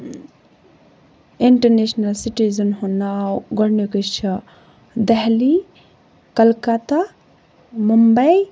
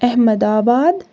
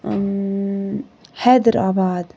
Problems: constant background noise